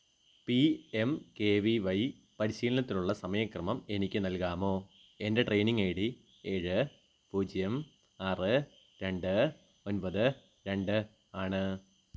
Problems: none marked